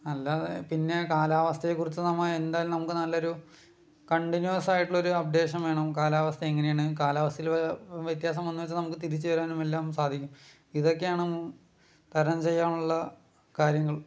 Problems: low volume